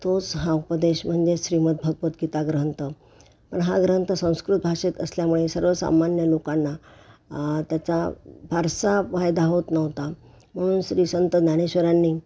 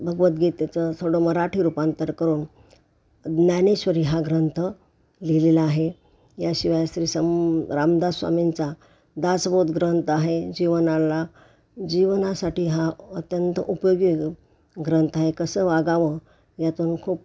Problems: background sounds at intervals